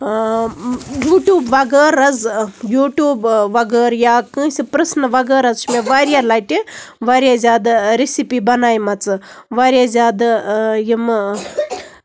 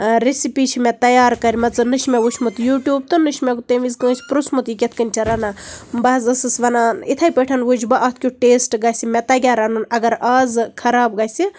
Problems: background sounds at intervals